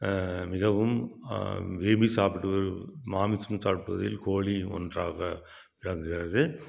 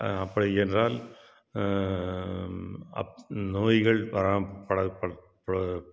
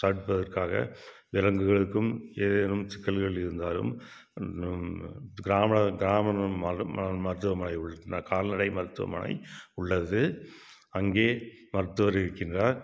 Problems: none marked